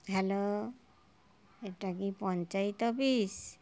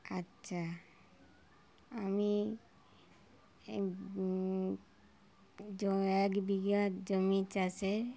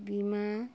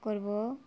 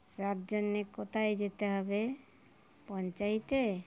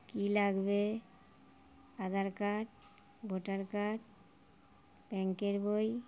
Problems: background sounds at intervals